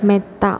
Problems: constant background noise, low volume